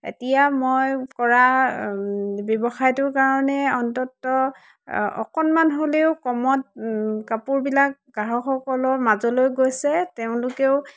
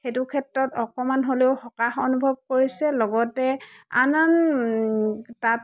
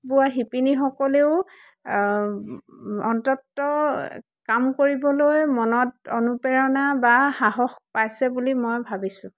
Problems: background sounds at intervals